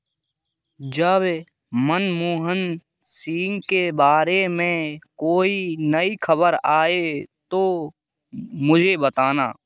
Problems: background sounds at intervals